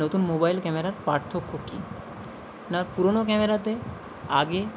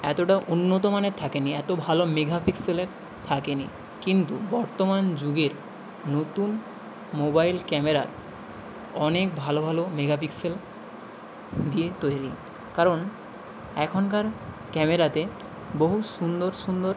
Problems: constant background noise